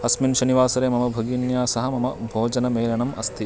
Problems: none marked